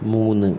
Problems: constant background noise